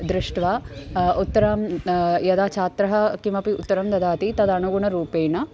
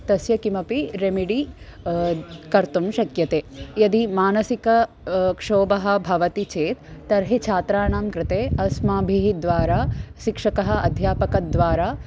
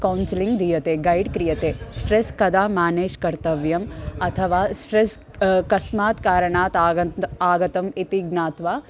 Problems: constant background noise